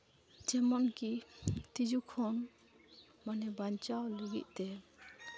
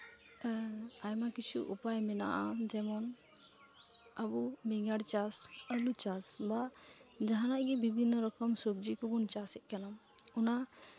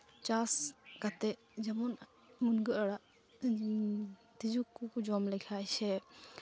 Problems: background sounds at intervals